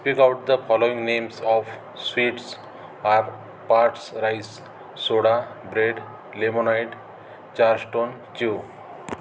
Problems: constant background noise, background conversations at intervals